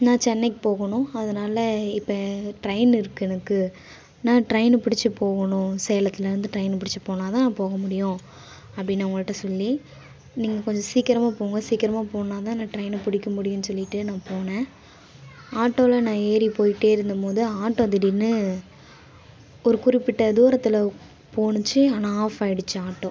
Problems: background sounds at intervals, background conversations at intervals